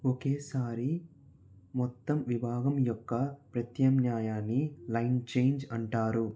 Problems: low volume